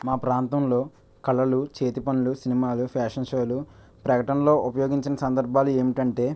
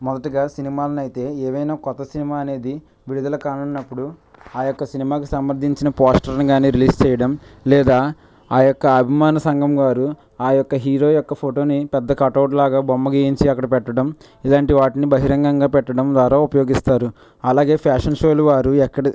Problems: none marked